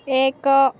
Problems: background conversations at intervals